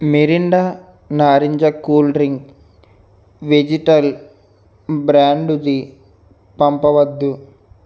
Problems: none marked